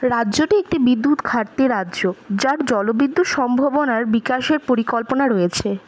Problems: none marked